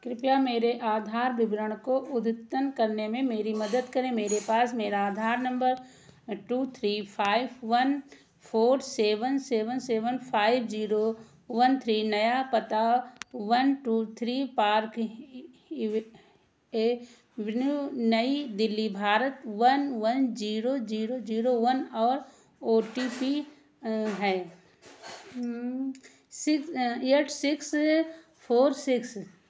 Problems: none marked